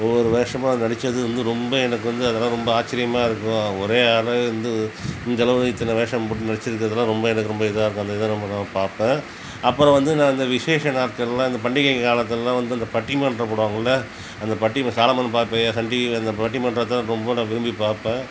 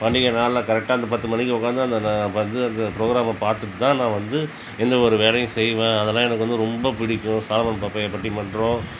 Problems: constant background noise